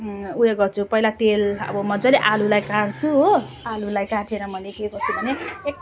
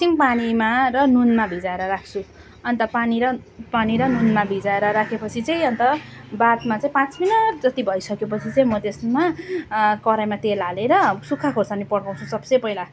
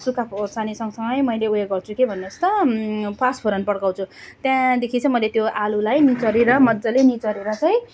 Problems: constant background noise